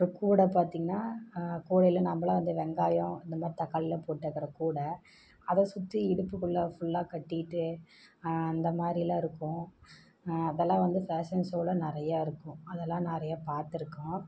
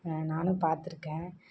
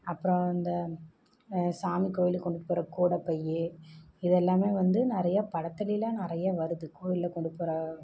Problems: low volume